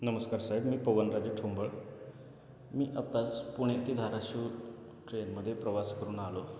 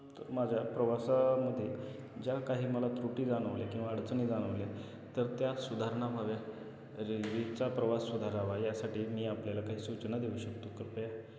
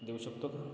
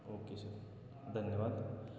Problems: none marked